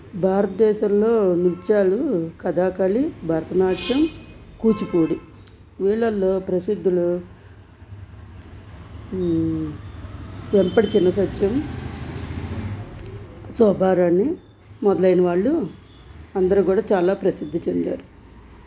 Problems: constant background noise